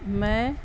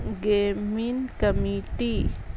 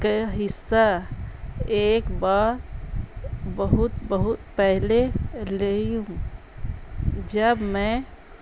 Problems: constant background noise